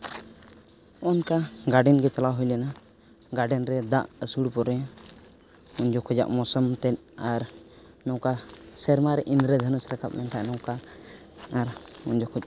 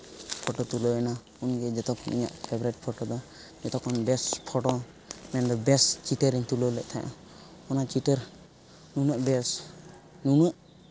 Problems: background sounds at intervals